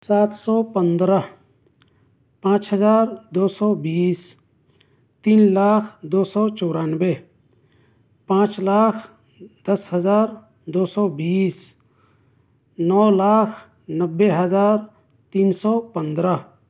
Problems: none marked